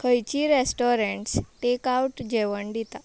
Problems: background sounds at intervals